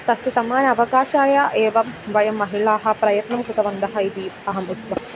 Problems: none marked